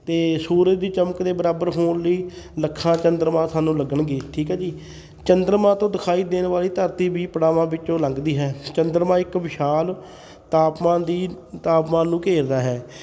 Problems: background sounds at intervals, continuous background conversations